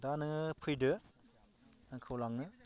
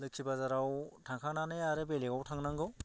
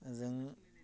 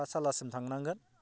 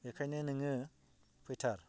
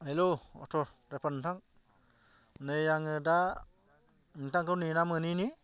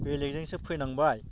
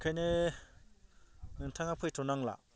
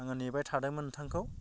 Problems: none marked